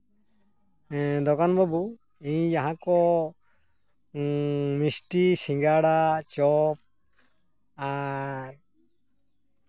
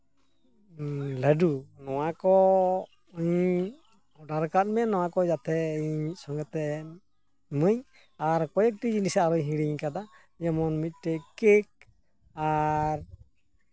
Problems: constant background noise